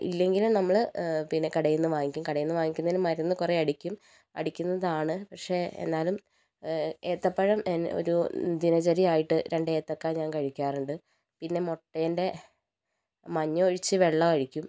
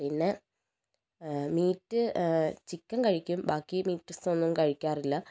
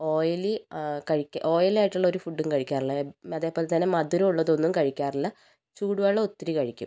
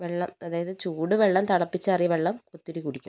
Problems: low volume